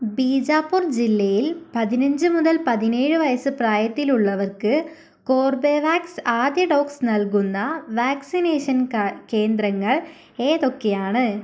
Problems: none marked